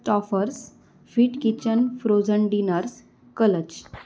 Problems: none marked